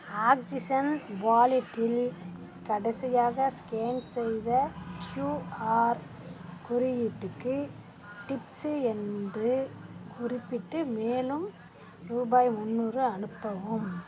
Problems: none marked